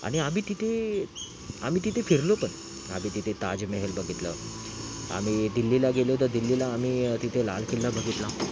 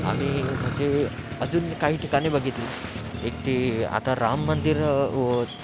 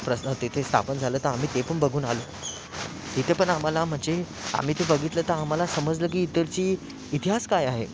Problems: constant background noise